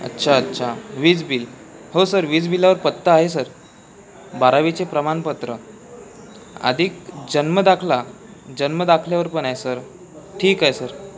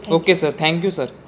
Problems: background conversations at intervals